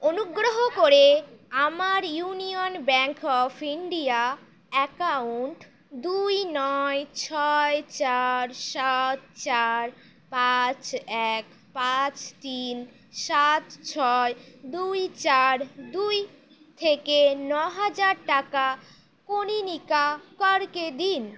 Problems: none marked